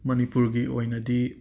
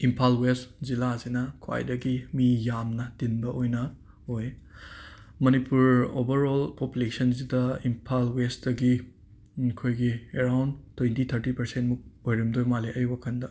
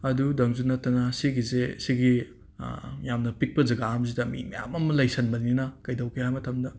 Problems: background sounds at intervals